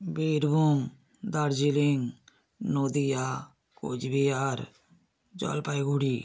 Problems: none marked